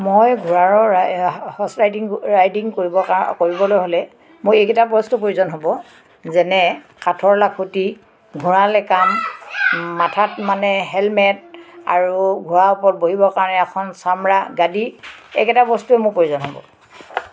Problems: constant background noise, background conversations at intervals